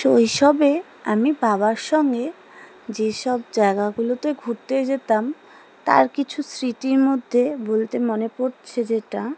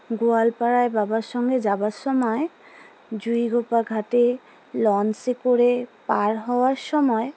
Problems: none marked